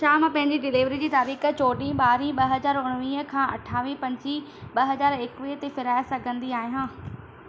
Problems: constant background noise, echo